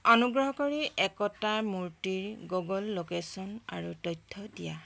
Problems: none marked